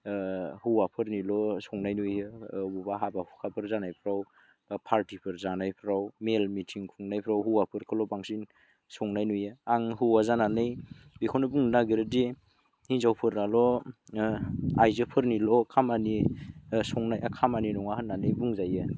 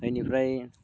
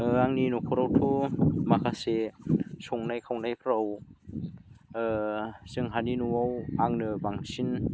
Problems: none marked